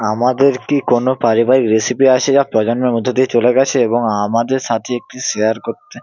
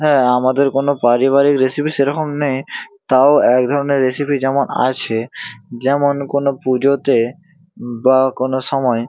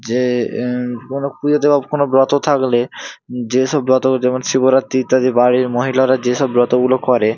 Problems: constant background noise